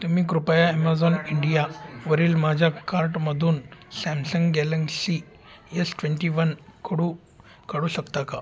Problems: constant background noise, continuous background conversations